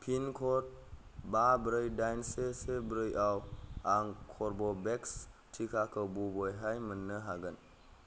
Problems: low volume